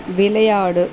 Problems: constant background noise